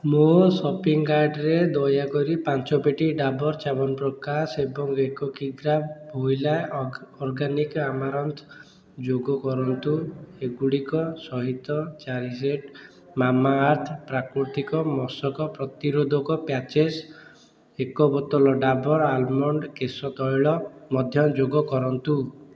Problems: background conversations at intervals